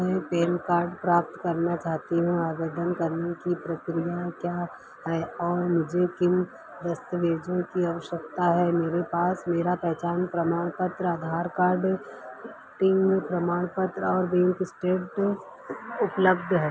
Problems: none marked